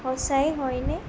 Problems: none marked